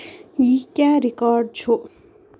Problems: none marked